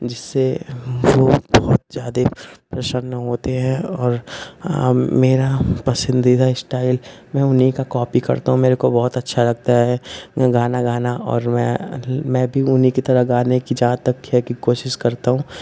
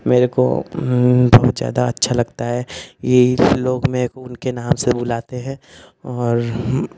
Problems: constant background noise